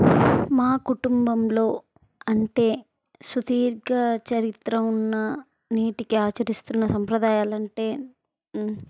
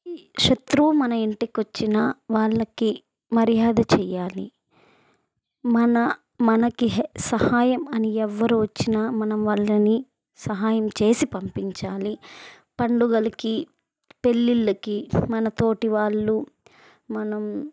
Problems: background sounds at intervals